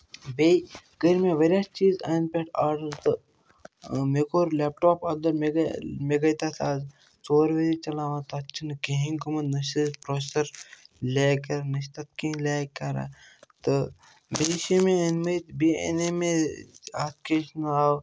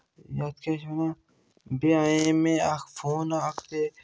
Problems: none marked